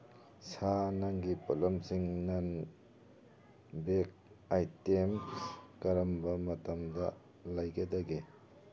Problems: background sounds at intervals